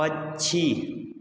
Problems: echo